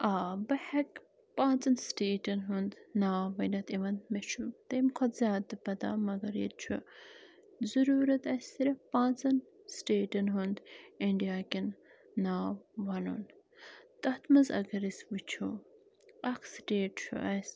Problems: constant background noise